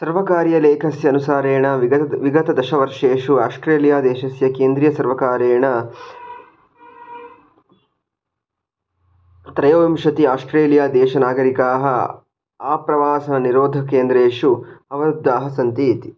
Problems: background sounds at intervals